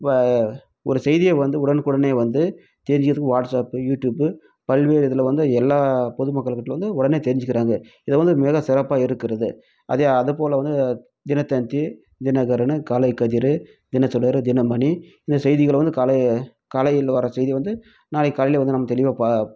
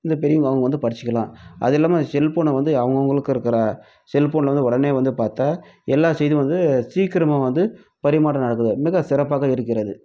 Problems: none marked